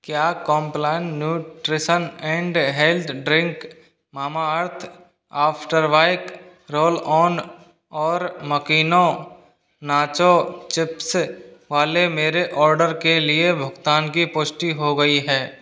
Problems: constant background noise